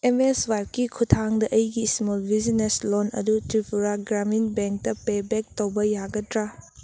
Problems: none marked